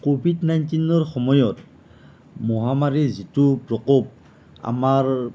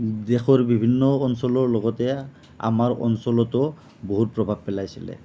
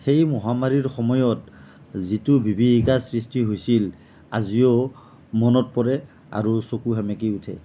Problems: none marked